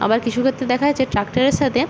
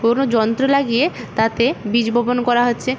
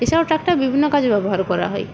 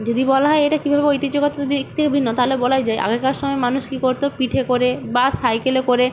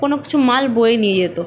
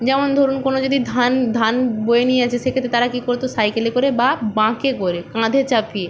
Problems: none marked